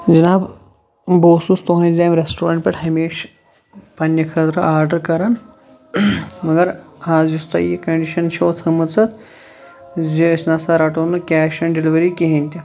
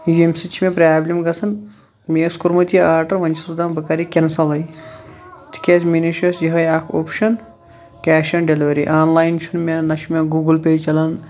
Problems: none marked